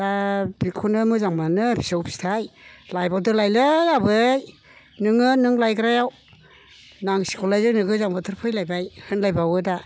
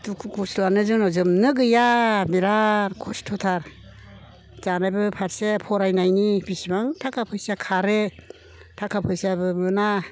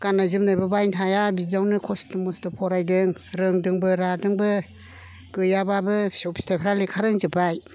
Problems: constant background noise